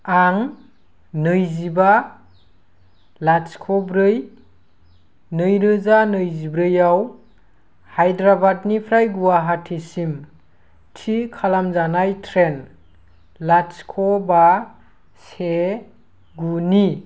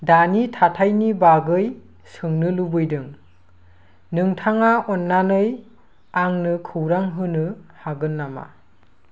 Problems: constant background noise